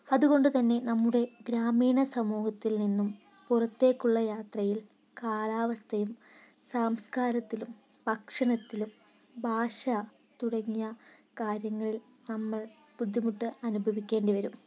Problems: none marked